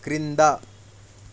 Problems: constant background noise